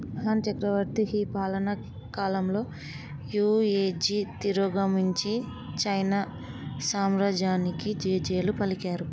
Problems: background sounds at intervals